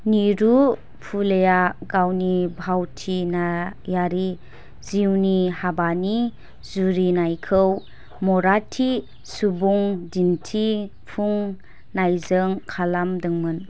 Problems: none marked